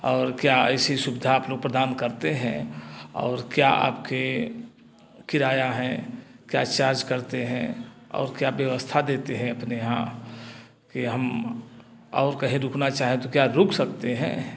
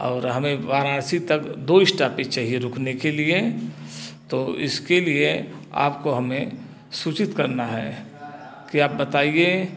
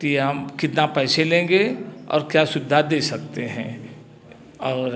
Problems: constant background noise, background conversations at intervals, echo